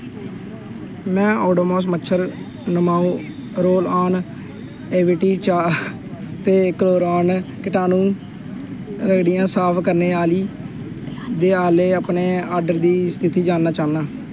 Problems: constant background noise